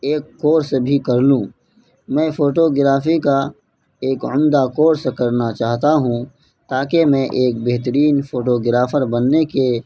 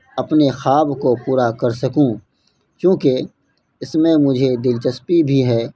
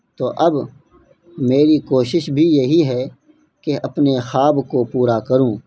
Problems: constant background noise